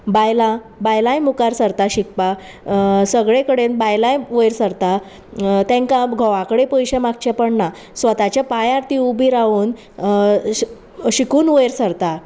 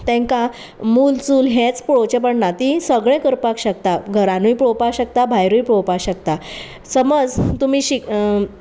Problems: constant background noise